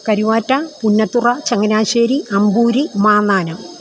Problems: constant background noise